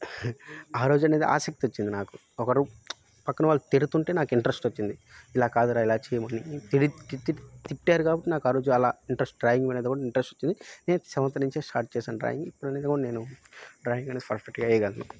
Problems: background sounds at intervals